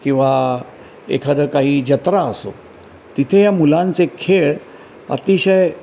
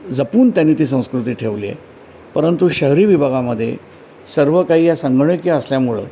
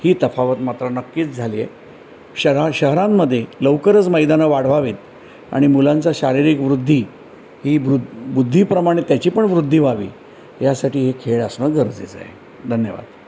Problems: background sounds at intervals